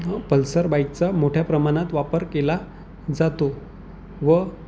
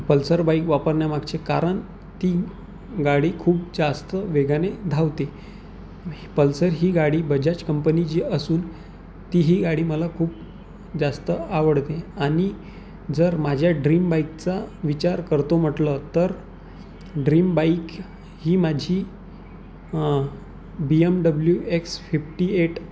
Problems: none marked